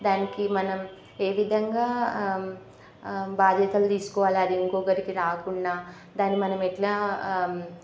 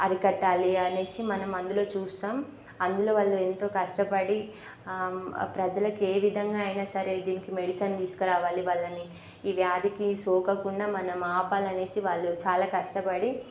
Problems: constant background noise